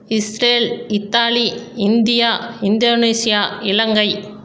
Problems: none marked